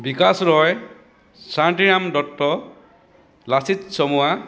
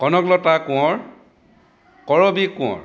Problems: constant background noise